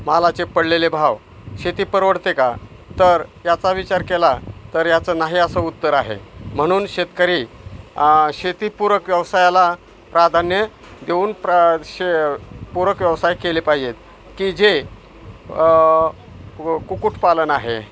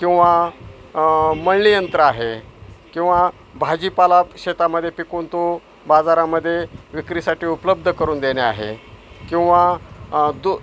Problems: none marked